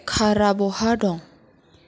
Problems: none marked